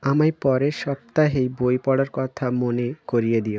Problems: constant background noise